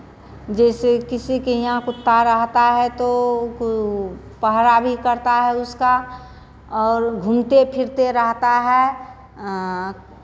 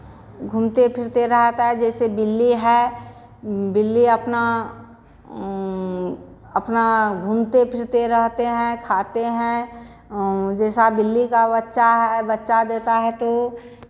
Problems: constant background noise